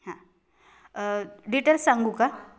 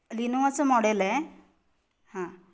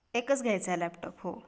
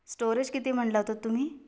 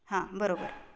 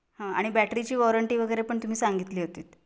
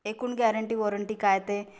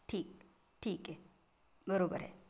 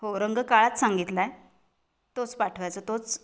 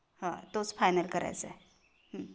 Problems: background sounds at intervals